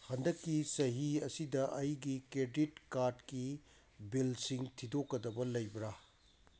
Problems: background sounds at intervals